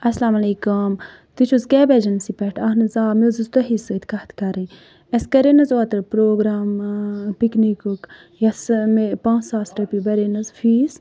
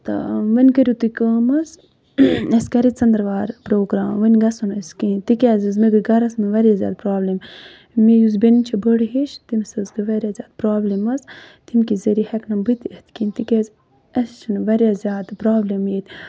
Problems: none marked